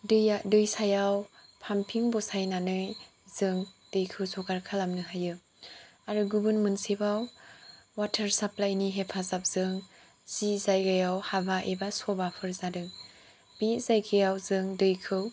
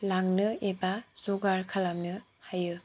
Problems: low volume